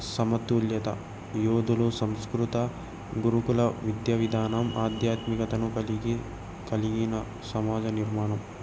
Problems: none marked